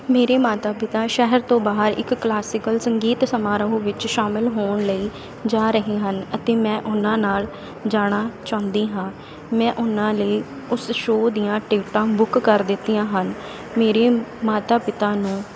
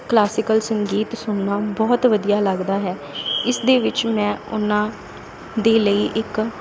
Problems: none marked